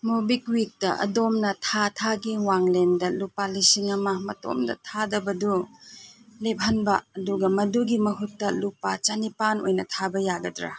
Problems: none marked